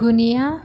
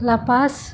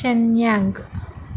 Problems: constant background noise